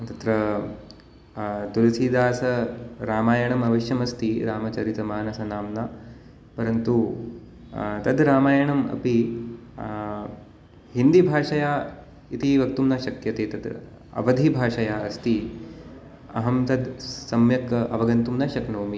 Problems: constant background noise